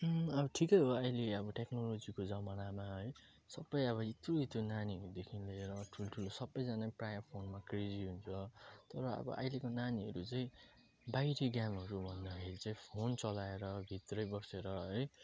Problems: background sounds at intervals